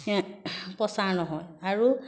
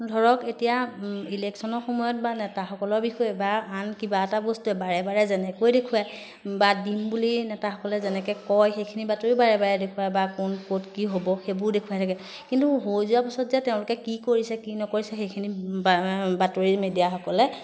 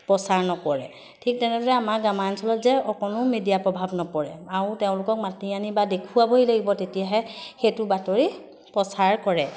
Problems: constant background noise